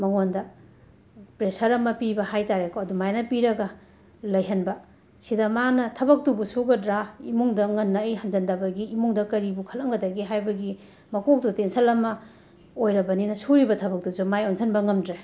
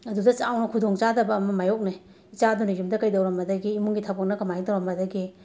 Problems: background sounds at intervals